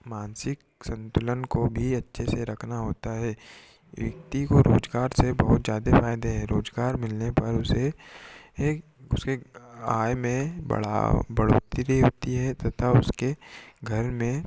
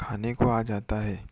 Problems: background sounds at intervals